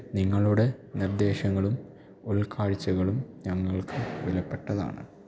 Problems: low volume